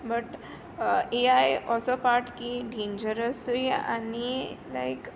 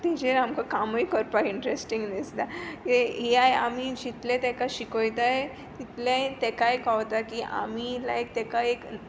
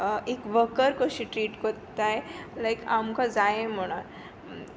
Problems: none marked